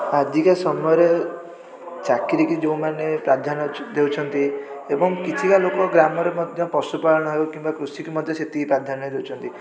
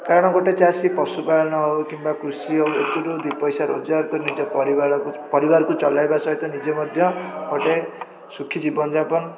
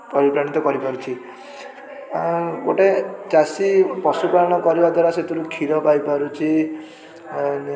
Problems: constant background noise